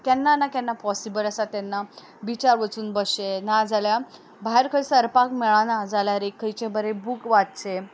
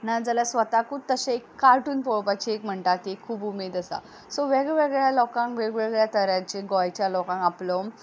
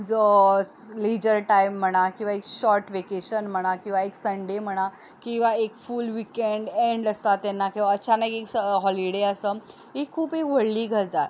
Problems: background sounds at intervals